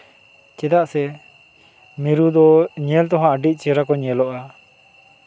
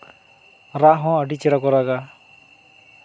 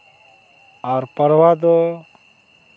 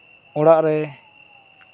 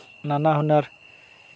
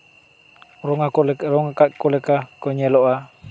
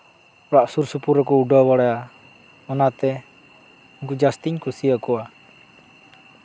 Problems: constant background noise